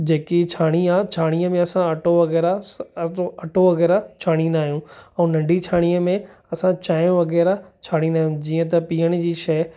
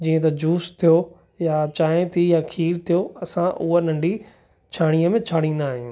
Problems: none marked